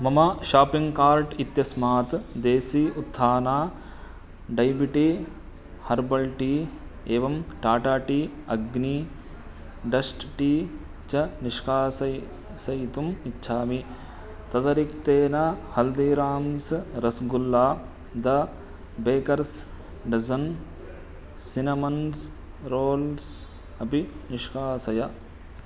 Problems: constant background noise